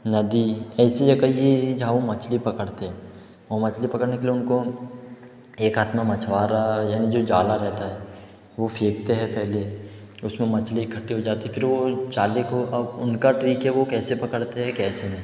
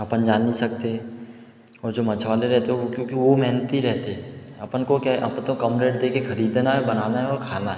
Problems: echo